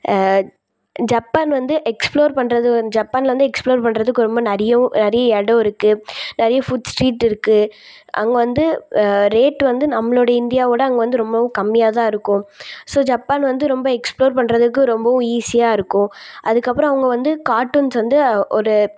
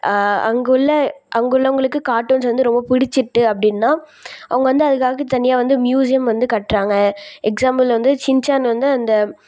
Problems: none marked